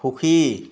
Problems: none marked